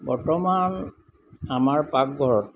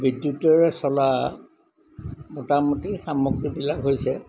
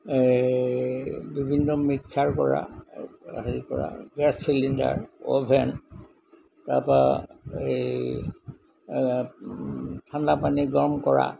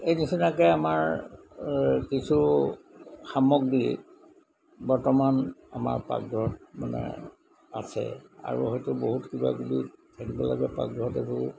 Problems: background sounds at intervals